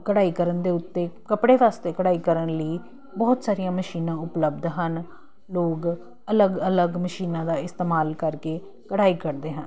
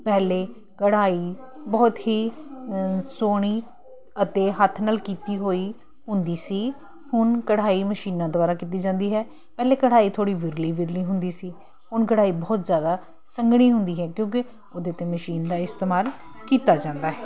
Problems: none marked